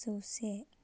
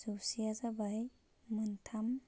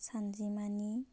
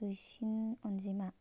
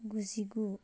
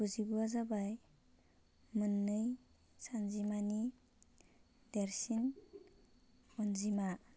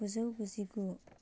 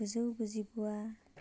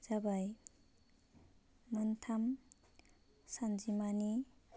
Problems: constant background noise